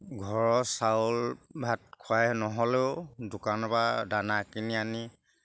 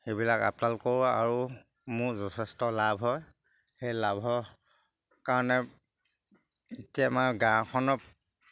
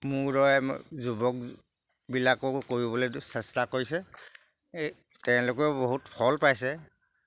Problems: background sounds at intervals